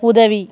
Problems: continuous background conversations